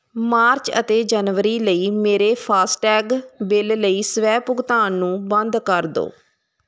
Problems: constant background noise